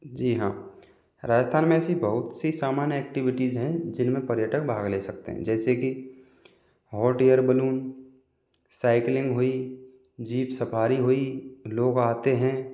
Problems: constant background noise